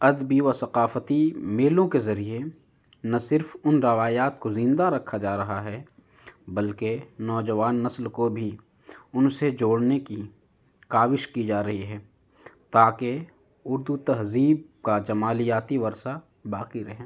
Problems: none marked